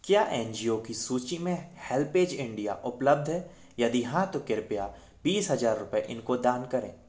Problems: none marked